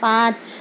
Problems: constant background noise